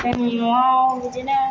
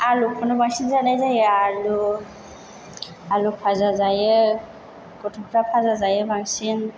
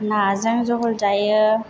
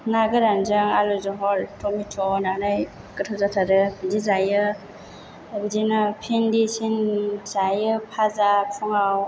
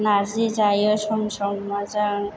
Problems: none marked